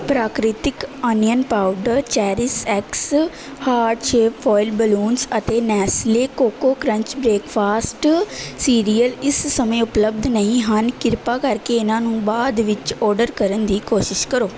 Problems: none marked